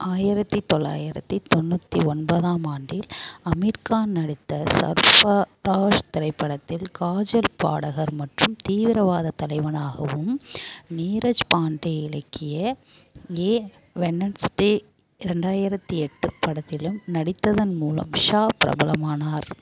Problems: background sounds at intervals